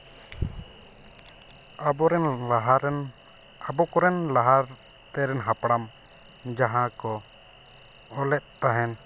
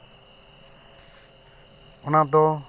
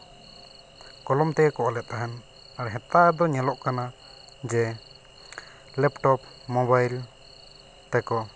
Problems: none marked